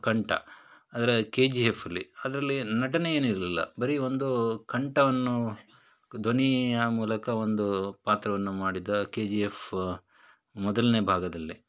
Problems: none marked